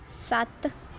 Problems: background sounds at intervals